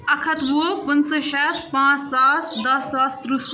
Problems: constant background noise, background conversations at intervals